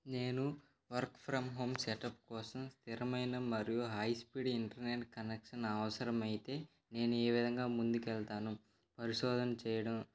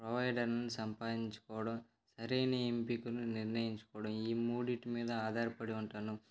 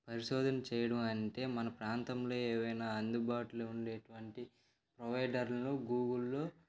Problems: background sounds at intervals